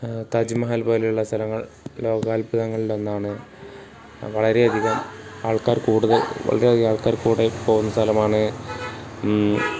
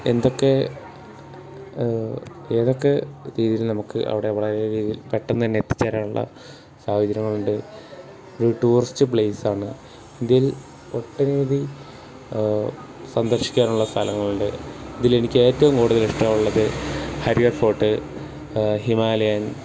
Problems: background sounds at intervals